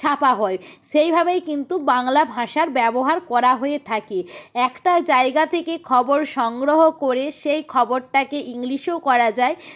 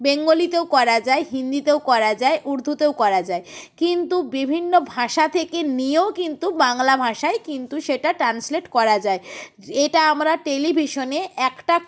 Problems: none marked